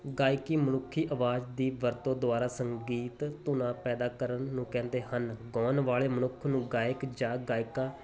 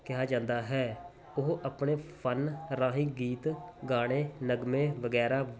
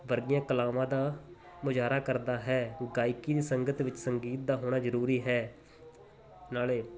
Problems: background sounds at intervals